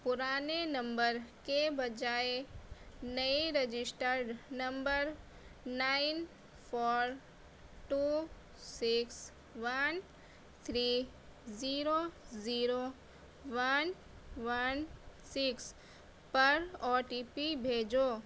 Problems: none marked